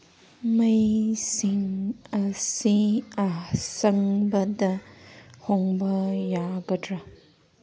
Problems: background sounds at intervals